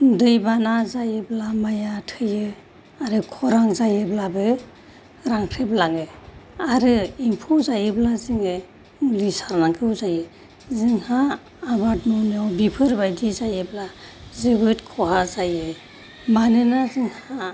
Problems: none marked